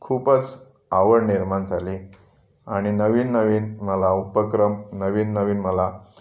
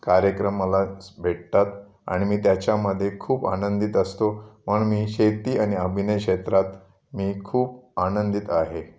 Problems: background sounds at intervals, background conversations at intervals